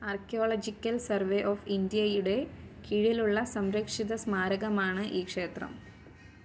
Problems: background sounds at intervals